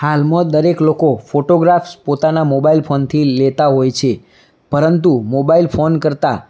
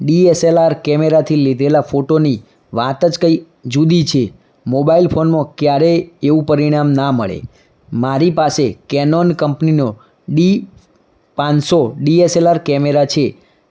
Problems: none marked